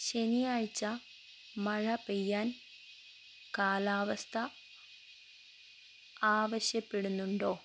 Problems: none marked